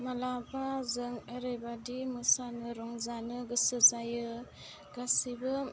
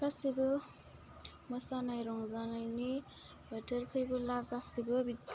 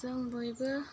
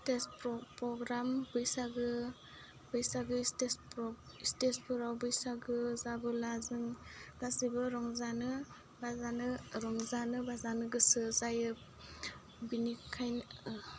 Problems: low volume